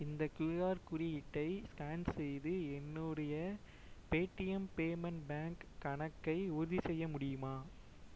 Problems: low volume